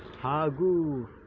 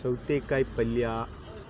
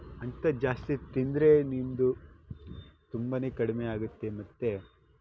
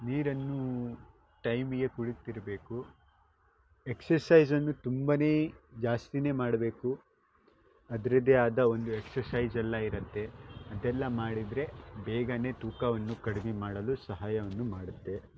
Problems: background sounds at intervals